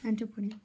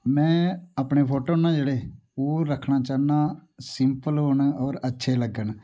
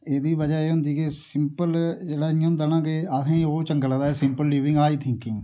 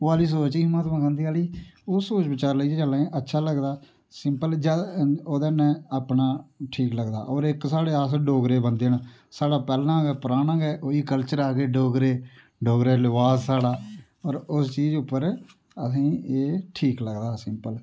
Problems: background sounds at intervals